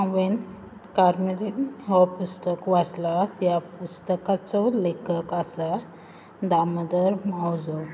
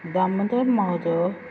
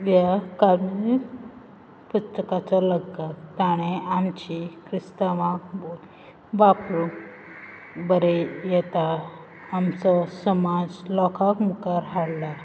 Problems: background sounds at intervals